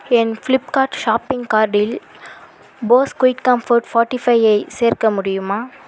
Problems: constant background noise